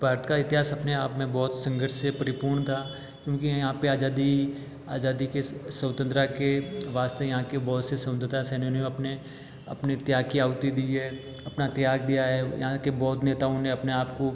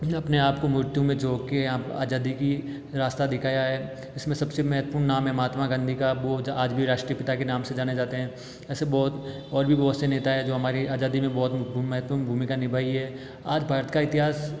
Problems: background sounds at intervals